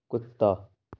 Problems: background sounds at intervals, low volume